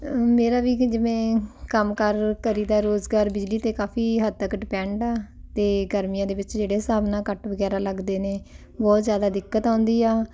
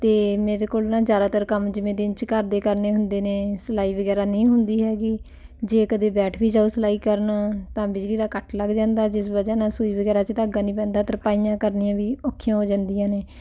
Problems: background conversations at intervals